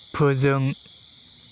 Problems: constant background noise